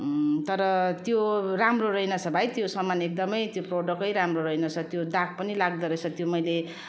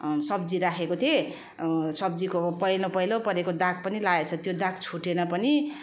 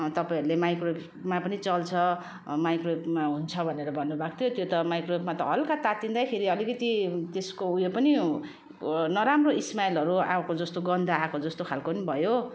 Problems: constant background noise